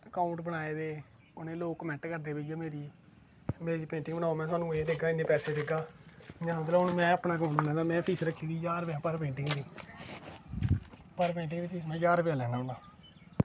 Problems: constant background noise